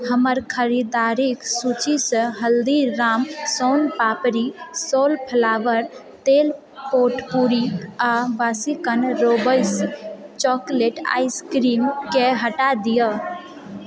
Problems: background sounds at intervals, background conversations at intervals